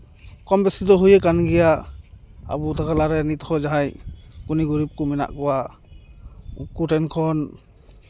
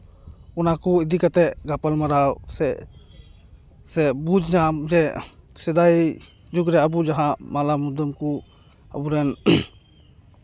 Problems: background sounds at intervals